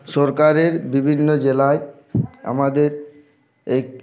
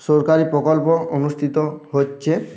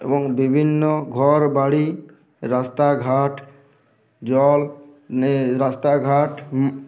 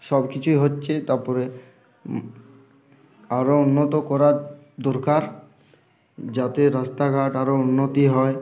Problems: constant background noise, background conversations at intervals